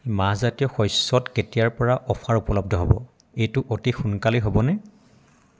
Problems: constant background noise